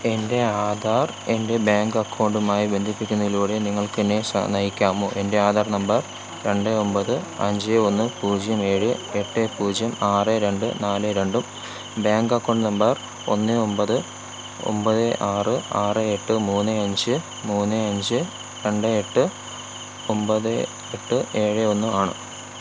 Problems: constant background noise